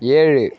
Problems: none marked